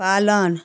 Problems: none marked